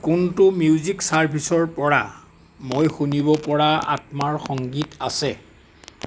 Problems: background sounds at intervals